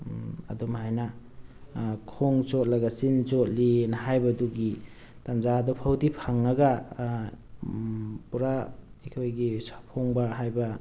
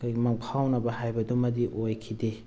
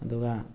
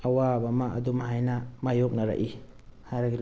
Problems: none marked